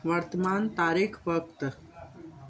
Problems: constant background noise